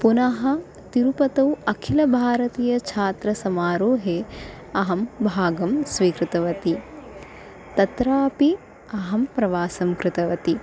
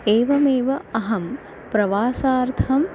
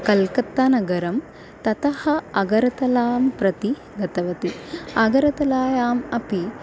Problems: constant background noise